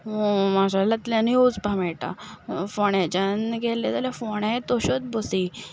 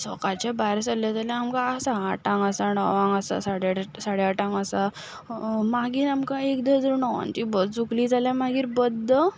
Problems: none marked